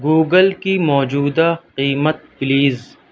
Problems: none marked